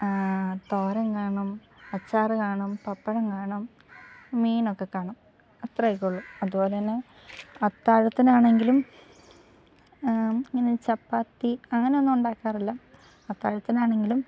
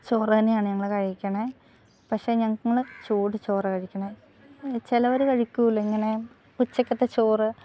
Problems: background sounds at intervals